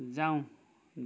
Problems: background conversations at intervals